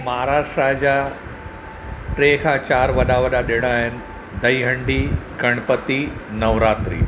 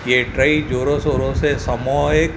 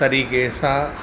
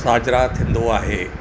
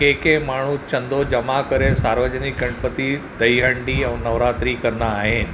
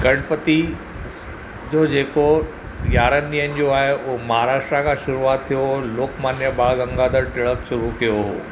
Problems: none marked